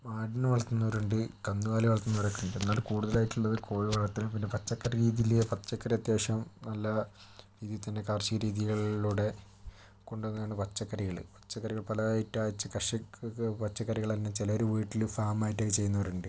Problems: low volume